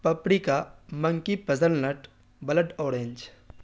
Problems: none marked